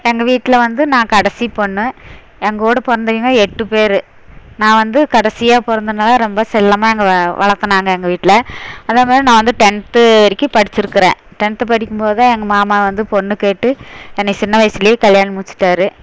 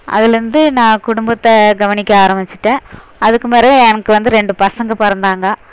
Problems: none marked